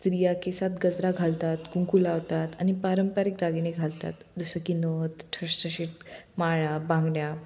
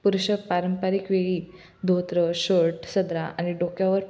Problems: none marked